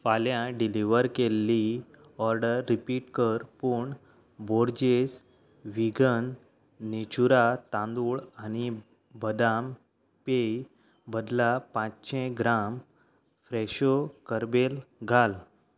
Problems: background conversations at intervals